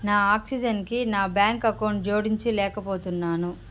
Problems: constant background noise